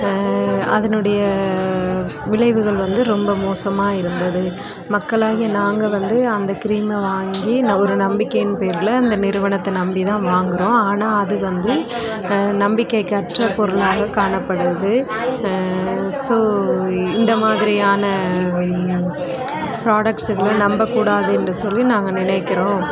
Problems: none marked